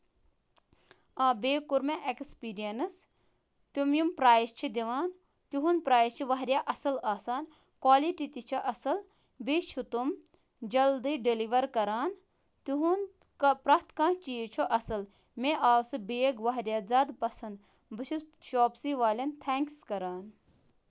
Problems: constant background noise